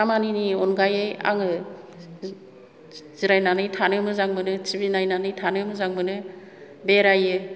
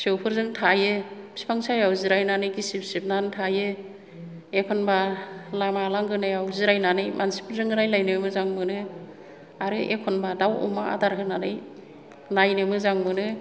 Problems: low volume